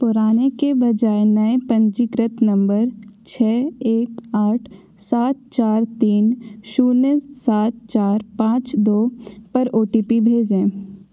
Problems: echo